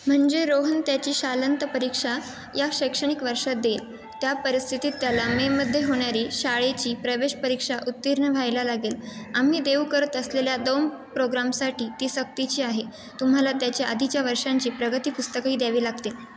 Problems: constant background noise, continuous background conversations, echo